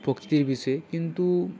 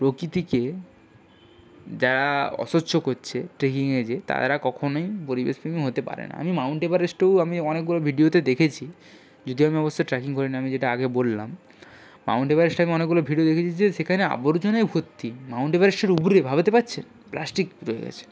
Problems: background sounds at intervals